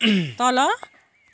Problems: background sounds at intervals